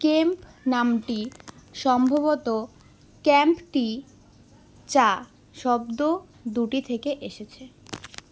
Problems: constant background noise, background conversations at intervals